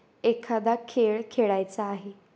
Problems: constant background noise